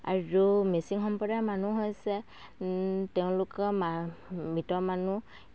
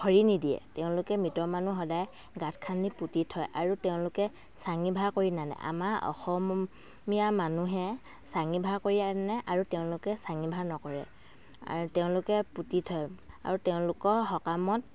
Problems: background sounds at intervals